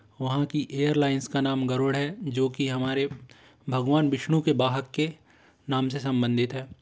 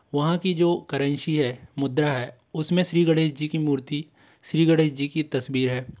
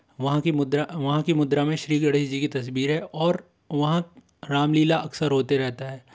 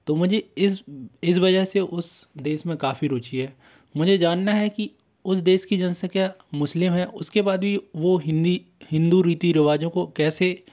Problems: constant background noise